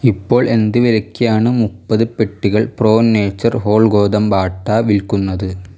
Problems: none marked